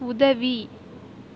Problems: constant background noise